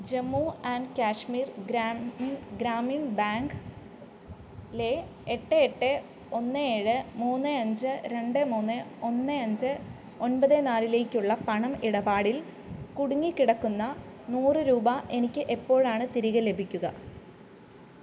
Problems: background sounds at intervals